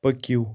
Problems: none marked